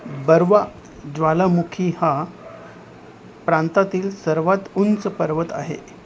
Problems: none marked